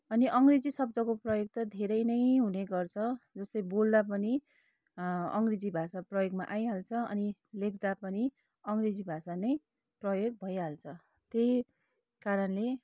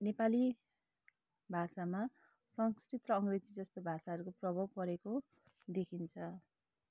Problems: low volume